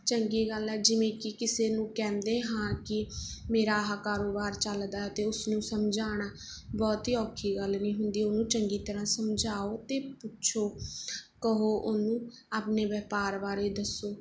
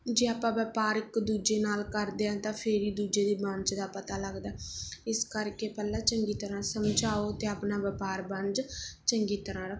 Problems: background sounds at intervals